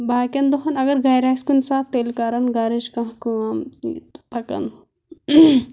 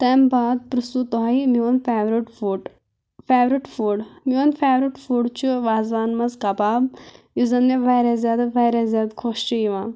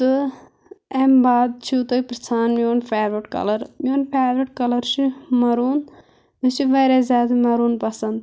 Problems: constant background noise